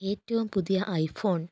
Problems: low volume